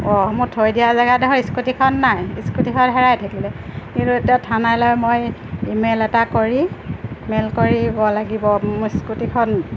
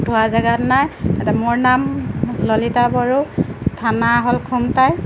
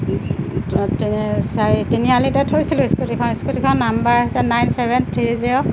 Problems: constant background noise